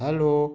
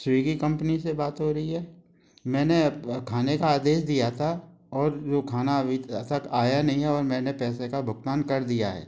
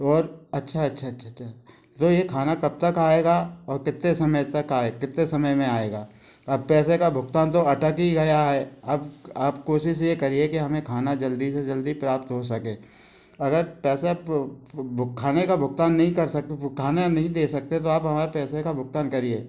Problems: none marked